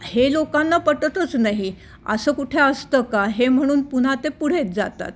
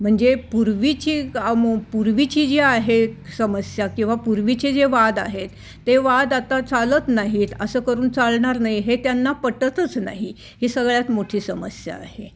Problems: none marked